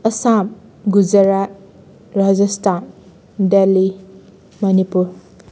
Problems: none marked